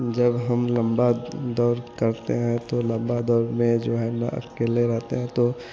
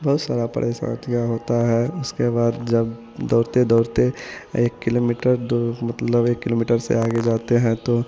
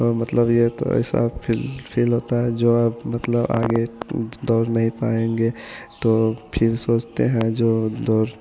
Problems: constant background noise